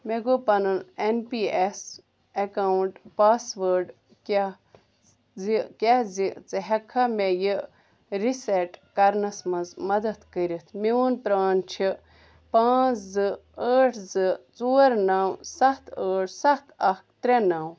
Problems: none marked